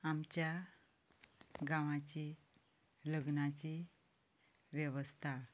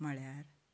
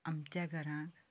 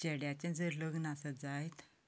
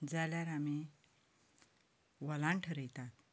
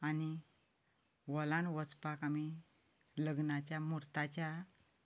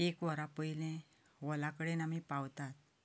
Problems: none marked